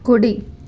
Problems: constant background noise